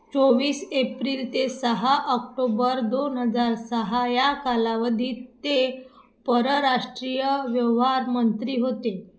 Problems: none marked